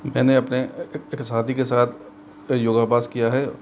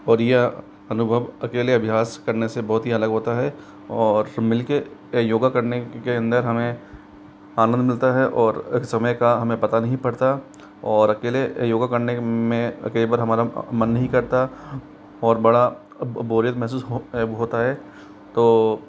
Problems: constant background noise